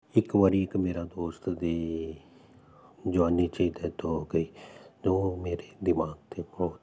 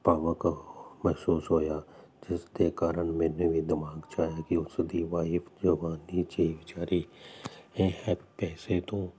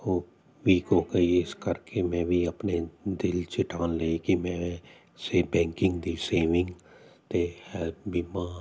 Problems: constant background noise